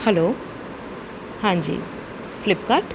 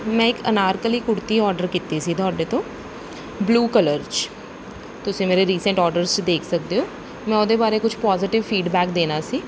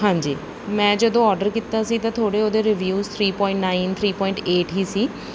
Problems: background sounds at intervals